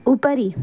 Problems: constant background noise